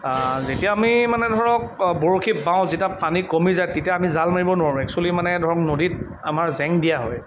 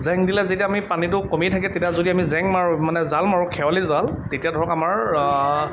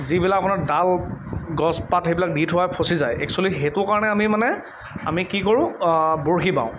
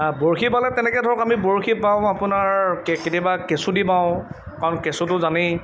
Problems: none marked